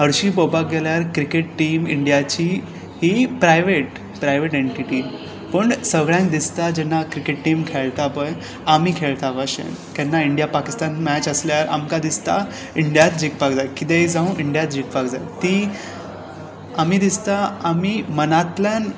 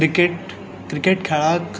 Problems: background sounds at intervals